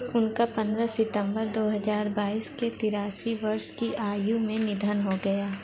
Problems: constant background noise, background conversations at intervals